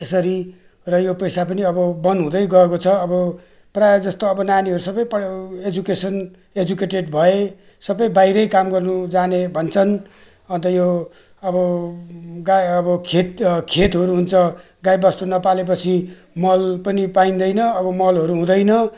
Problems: none marked